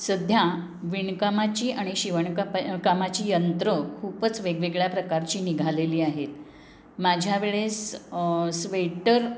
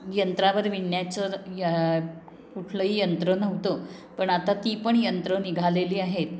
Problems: none marked